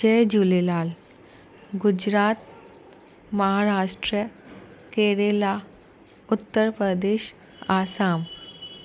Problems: constant background noise